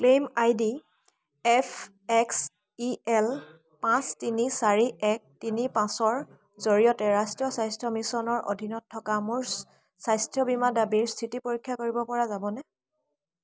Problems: constant background noise, background conversations at intervals